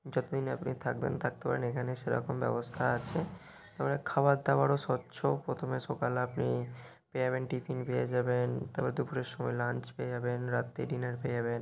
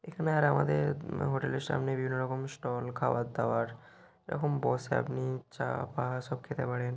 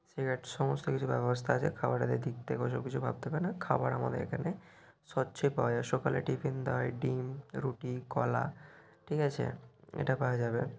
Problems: none marked